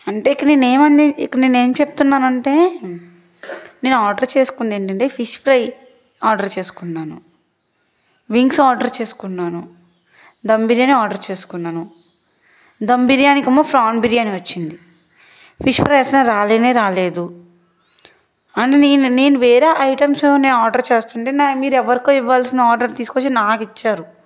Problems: background sounds at intervals